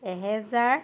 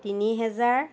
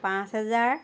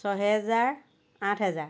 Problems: constant background noise